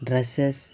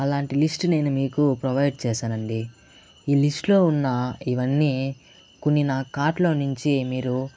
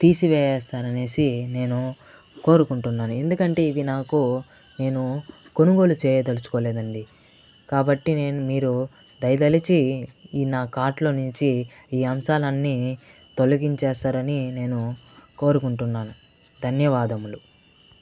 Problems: constant background noise